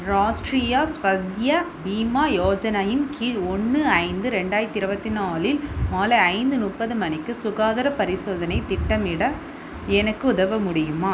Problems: constant background noise